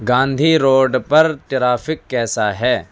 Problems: none marked